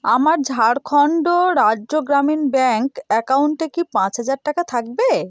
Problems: none marked